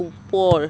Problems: none marked